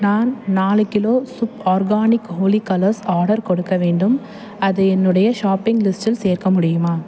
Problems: constant background noise, background conversations at intervals